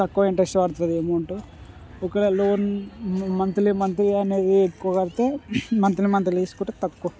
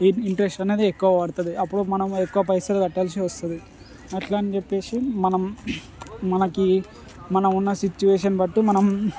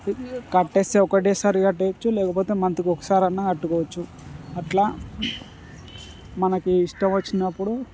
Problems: constant background noise, background conversations at intervals